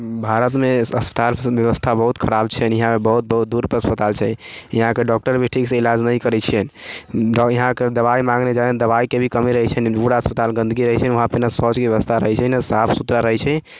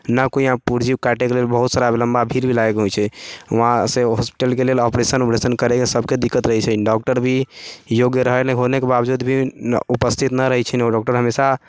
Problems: background conversations at intervals